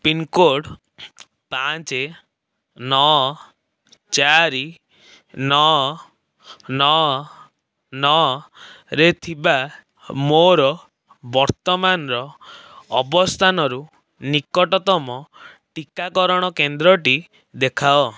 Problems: background sounds at intervals